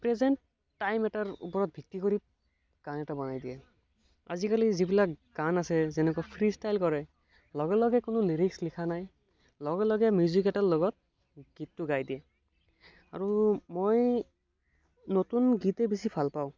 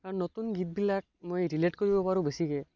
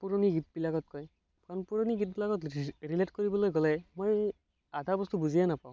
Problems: none marked